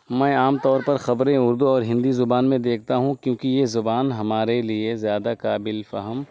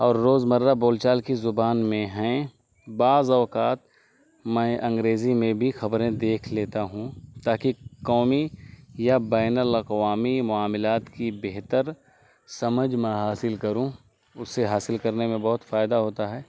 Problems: constant background noise